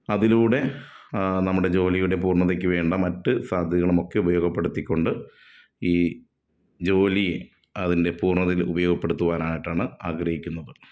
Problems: none marked